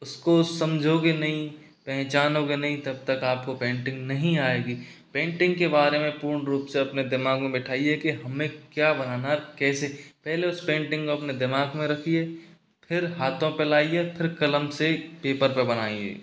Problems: none marked